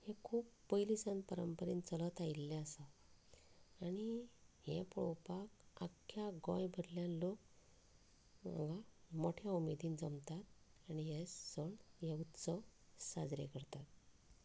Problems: background conversations at intervals, low volume